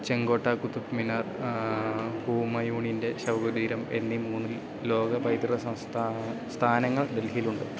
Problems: none marked